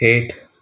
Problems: none marked